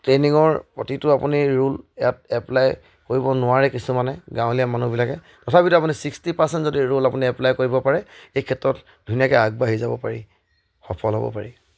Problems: none marked